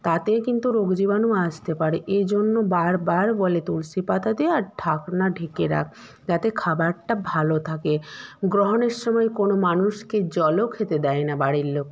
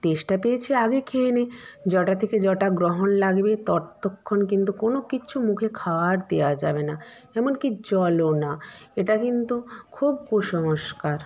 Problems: background sounds at intervals